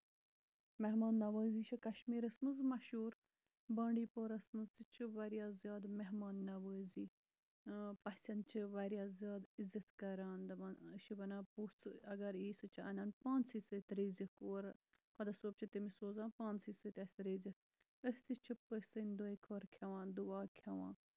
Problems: none marked